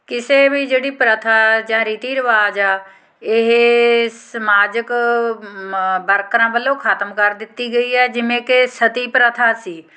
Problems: background sounds at intervals